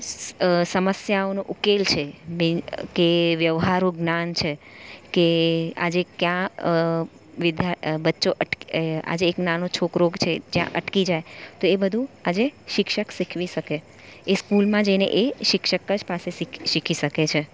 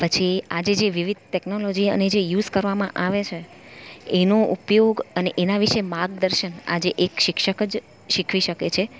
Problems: none marked